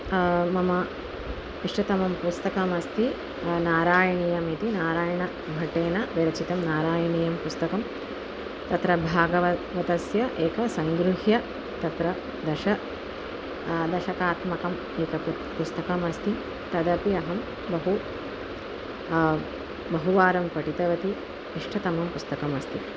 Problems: constant background noise